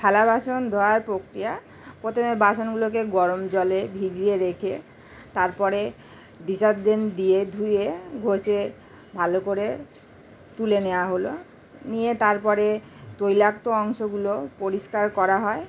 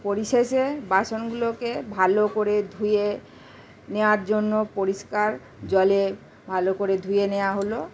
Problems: constant background noise